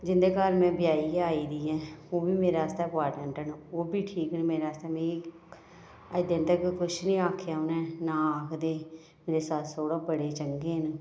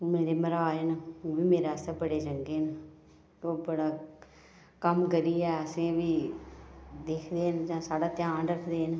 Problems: none marked